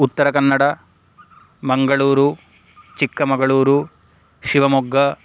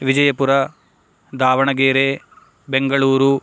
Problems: background sounds at intervals